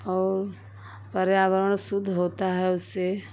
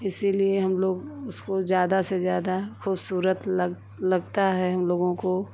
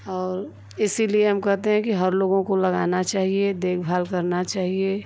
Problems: none marked